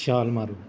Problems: none marked